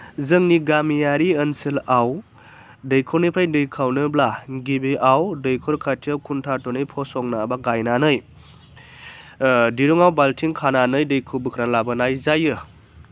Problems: constant background noise